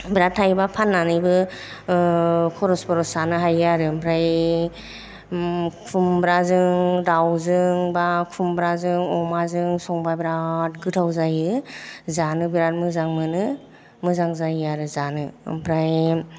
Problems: none marked